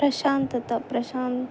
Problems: none marked